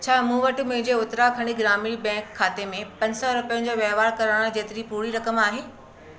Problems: constant background noise, background conversations at intervals